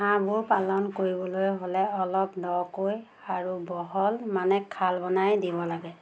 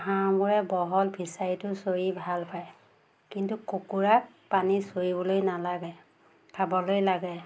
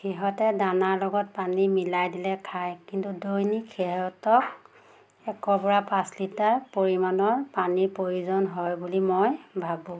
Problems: constant background noise